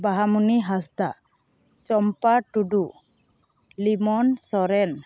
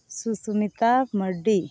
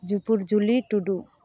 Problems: none marked